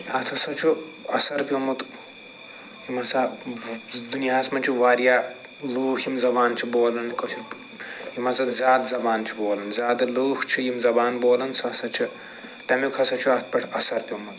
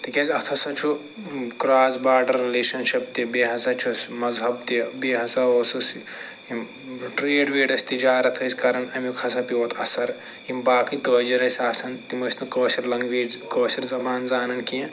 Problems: constant background noise